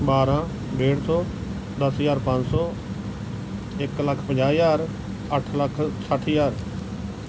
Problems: none marked